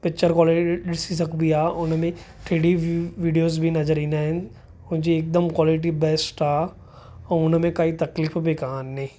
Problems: none marked